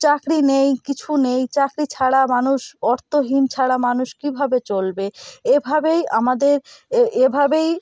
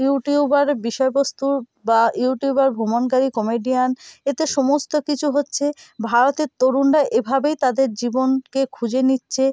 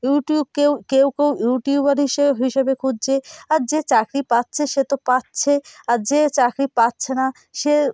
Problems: constant background noise